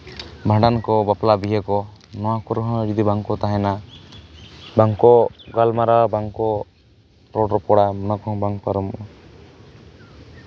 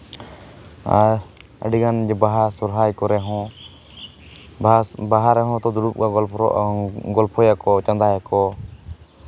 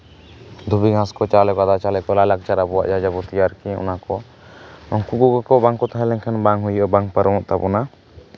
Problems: background sounds at intervals